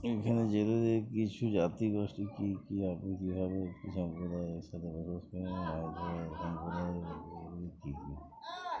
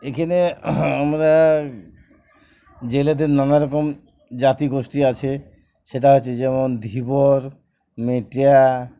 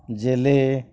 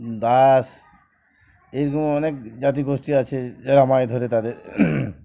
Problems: background sounds at intervals, background conversations at intervals